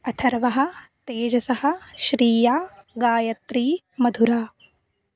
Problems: background sounds at intervals